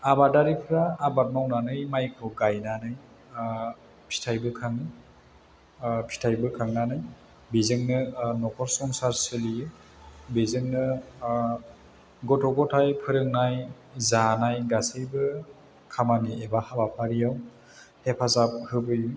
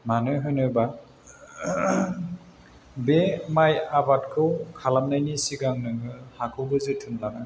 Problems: constant background noise